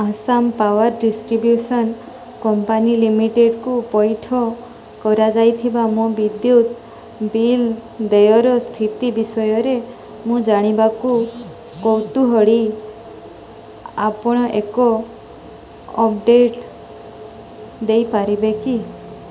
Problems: background sounds at intervals